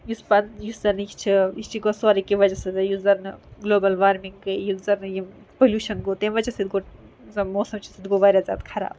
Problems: background sounds at intervals